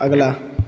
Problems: none marked